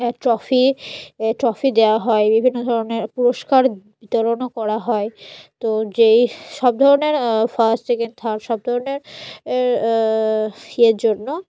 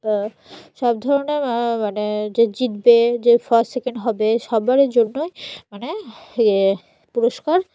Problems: none marked